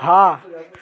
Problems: background sounds at intervals, continuous background conversations